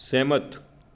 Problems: none marked